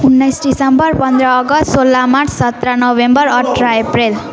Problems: continuous background conversations